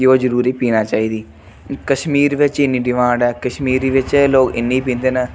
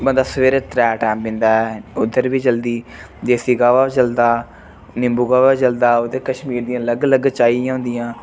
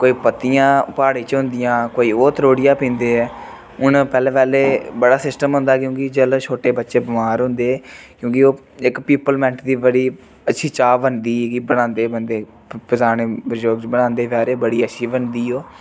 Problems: none marked